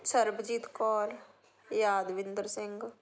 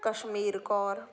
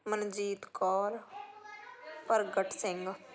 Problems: background conversations at intervals